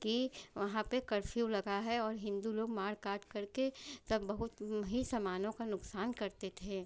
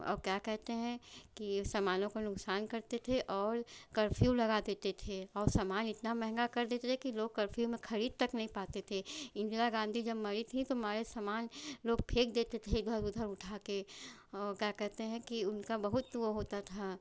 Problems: none marked